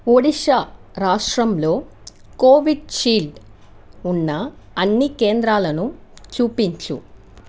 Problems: none marked